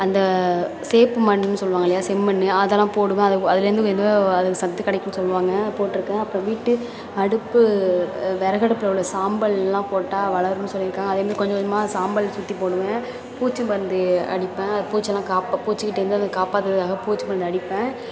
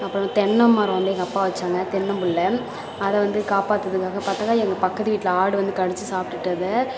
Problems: constant background noise, continuous background conversations